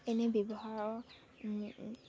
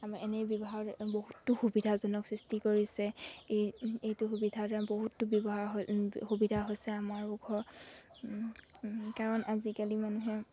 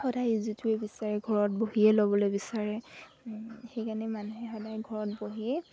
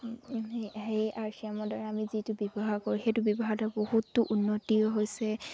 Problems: background sounds at intervals